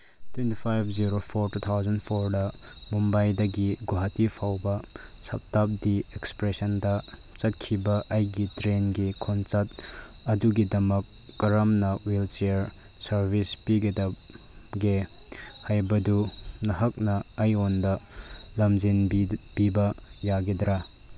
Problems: background sounds at intervals